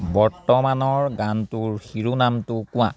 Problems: background conversations at intervals